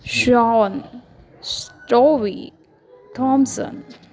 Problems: none marked